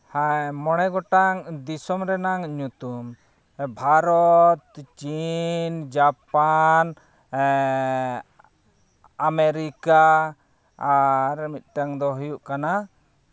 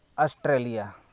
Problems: none marked